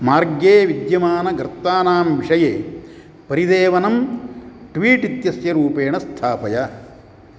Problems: none marked